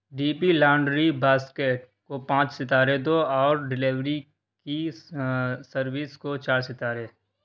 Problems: constant background noise